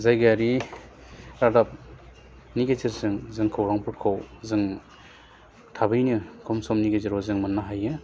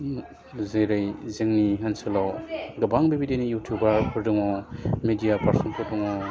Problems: low volume